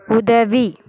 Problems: continuous background conversations